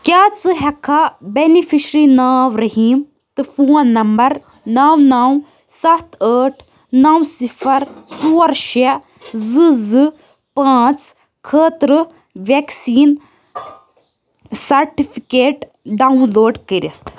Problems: none marked